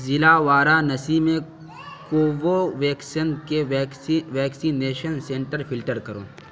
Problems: constant background noise